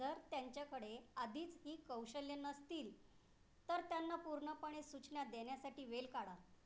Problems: low volume